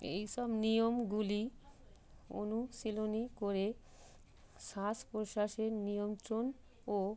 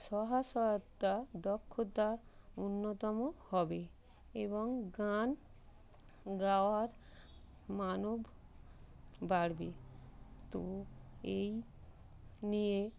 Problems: constant background noise